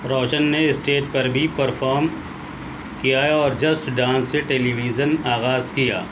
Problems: constant background noise